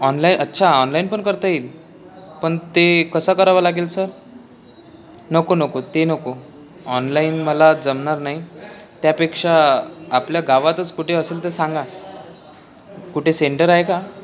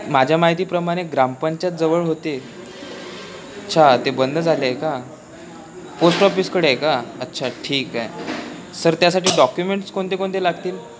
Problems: background conversations at intervals